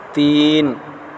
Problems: constant background noise